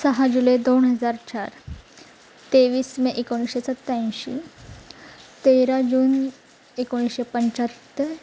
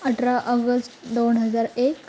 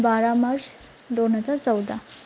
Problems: constant background noise